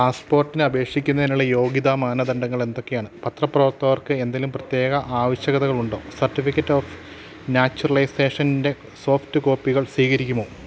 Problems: none marked